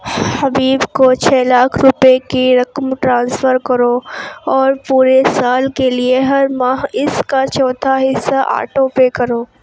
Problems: constant background noise